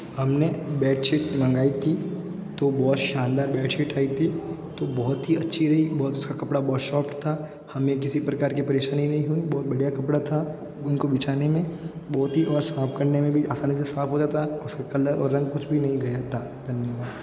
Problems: constant background noise